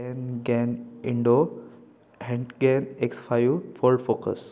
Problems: constant background noise, continuous background conversations